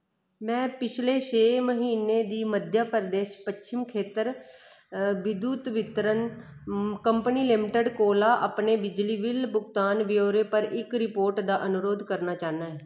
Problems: none marked